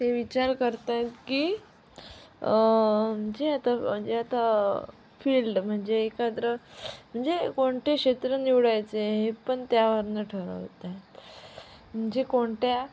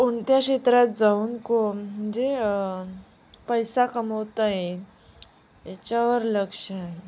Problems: background sounds at intervals, background conversations at intervals